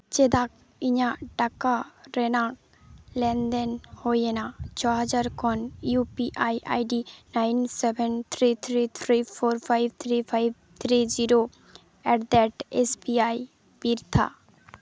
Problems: background sounds at intervals